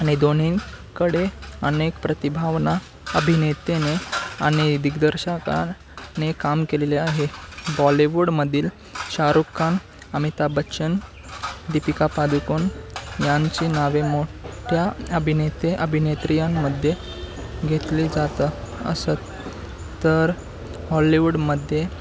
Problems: constant background noise